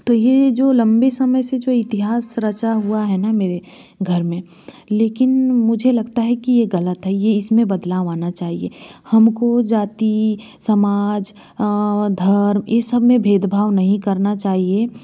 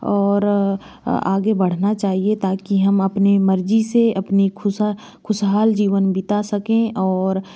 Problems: constant background noise